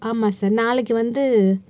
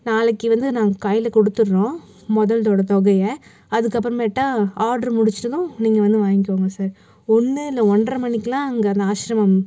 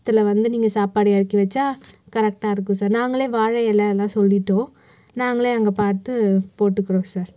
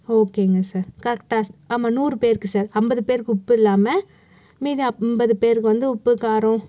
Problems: none marked